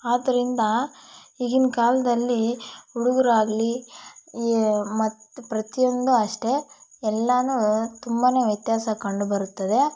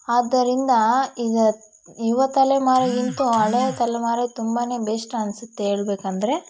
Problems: background sounds at intervals